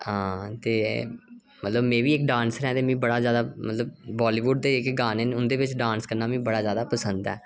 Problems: none marked